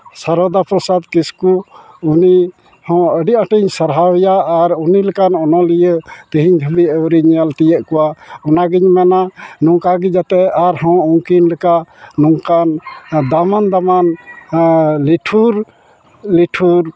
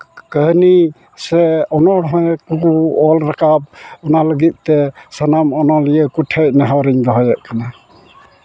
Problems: constant background noise, continuous background conversations